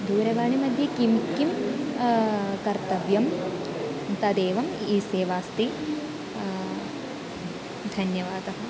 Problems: constant background noise, continuous background conversations